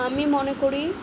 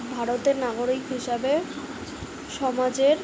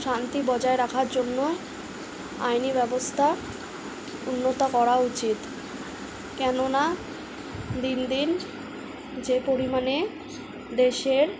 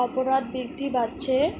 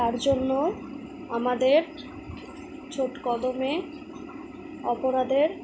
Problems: background sounds at intervals